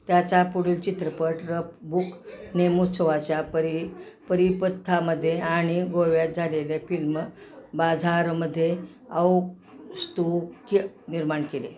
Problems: constant background noise, continuous background conversations